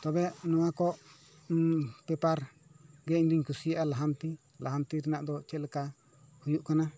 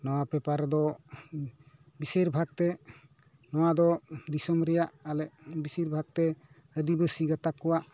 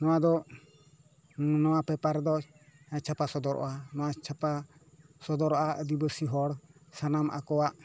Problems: background conversations at intervals